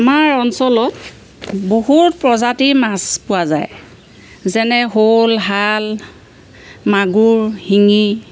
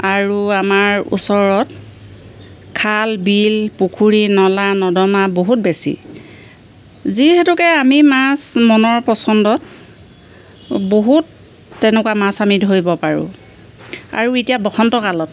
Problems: background sounds at intervals